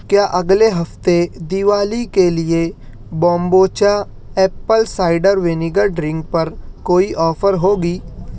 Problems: none marked